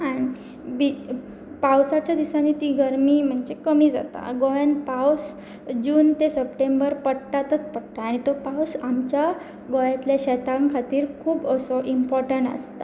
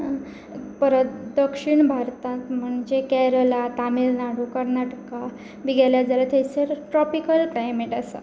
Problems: none marked